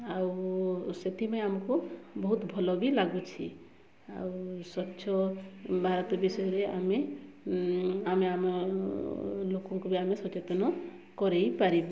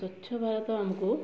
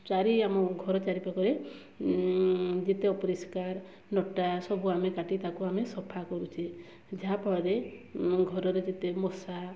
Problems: background sounds at intervals, low volume